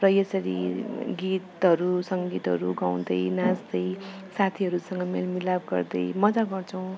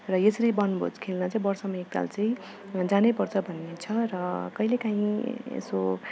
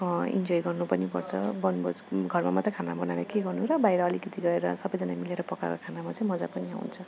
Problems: background sounds at intervals